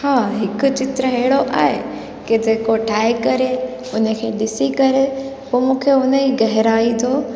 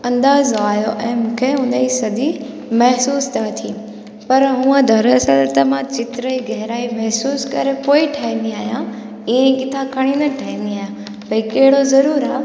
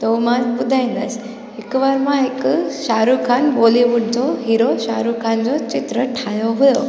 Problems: constant background noise, echo